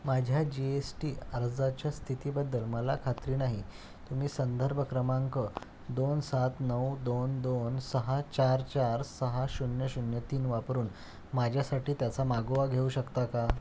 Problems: none marked